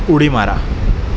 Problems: constant background noise